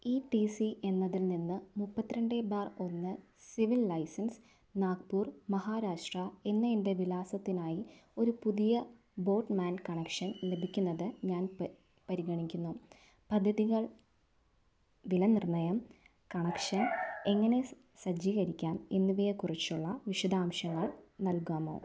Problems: none marked